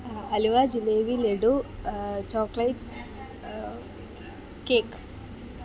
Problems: constant background noise